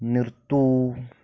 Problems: none marked